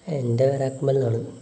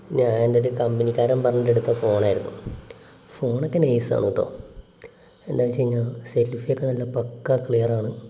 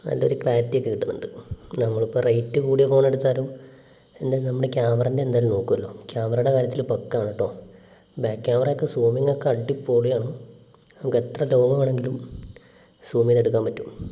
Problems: background sounds at intervals, low volume